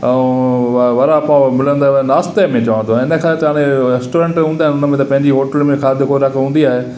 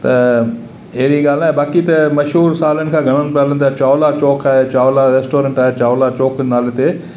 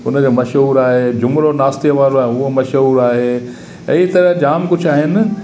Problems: constant background noise, echo